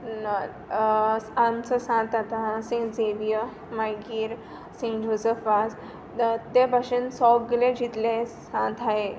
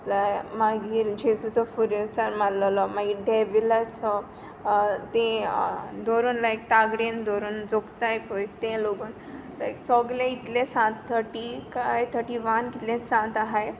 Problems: constant background noise